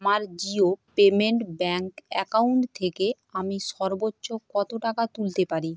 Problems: constant background noise